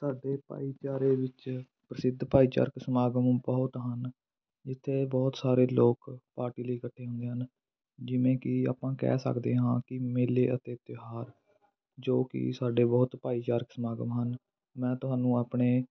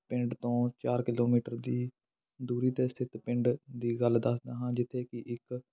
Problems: background sounds at intervals, continuous background conversations